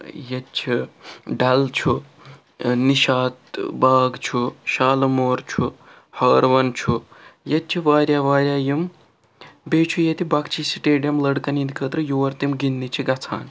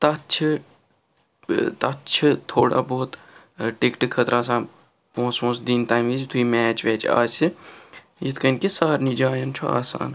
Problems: none marked